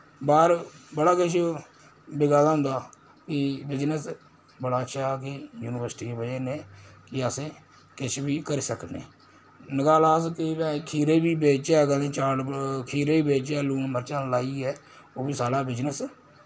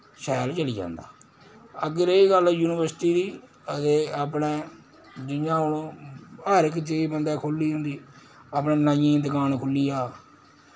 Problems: constant background noise